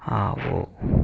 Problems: constant background noise